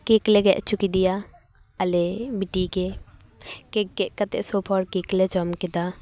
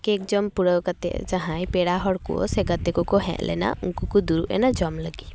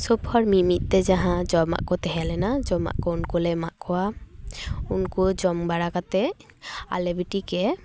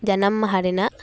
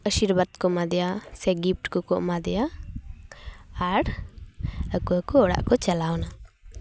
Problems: background sounds at intervals, background conversations at intervals